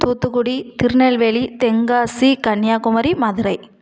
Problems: none marked